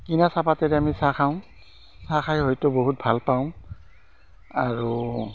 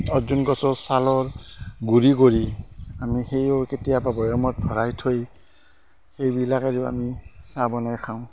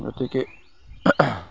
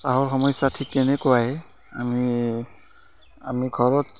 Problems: constant background noise